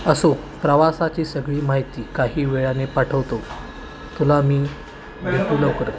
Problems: constant background noise, continuous background conversations